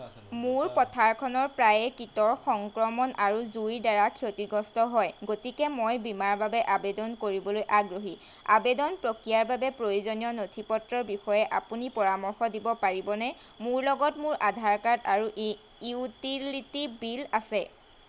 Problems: none marked